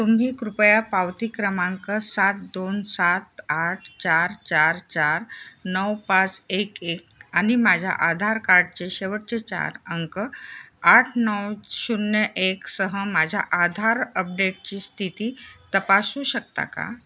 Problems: background sounds at intervals